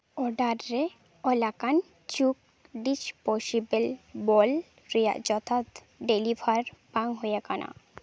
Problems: background sounds at intervals